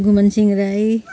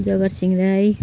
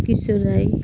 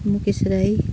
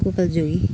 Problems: constant background noise